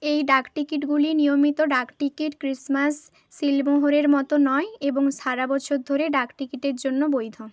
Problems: background conversations at intervals